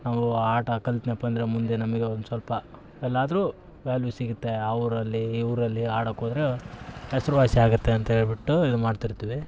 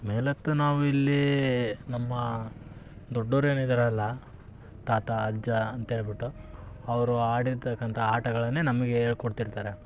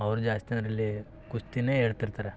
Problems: none marked